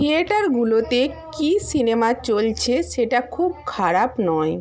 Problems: background conversations at intervals